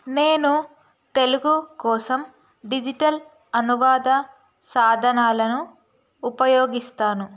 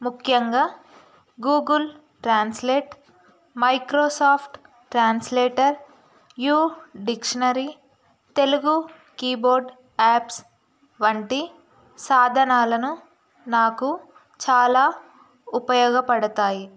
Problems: constant background noise